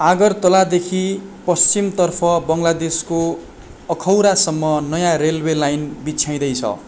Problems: constant background noise